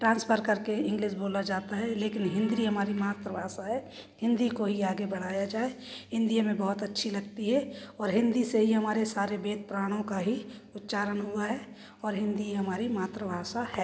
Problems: constant background noise, background conversations at intervals